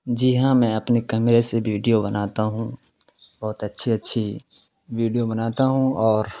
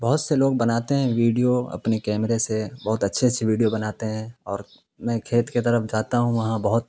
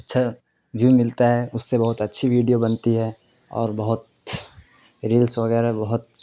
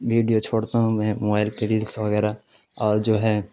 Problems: constant background noise